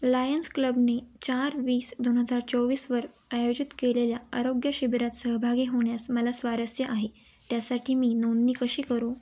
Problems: none marked